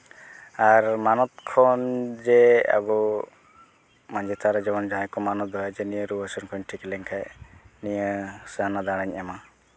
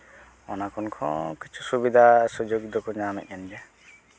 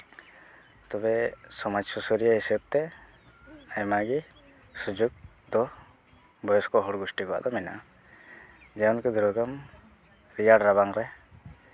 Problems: constant background noise